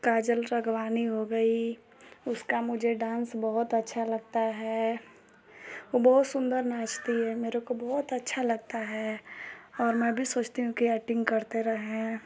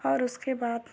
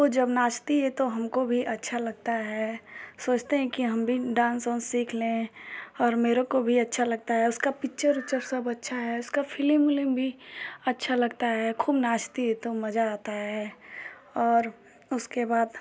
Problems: none marked